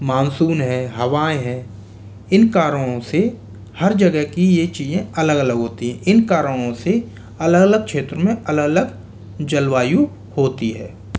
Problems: constant background noise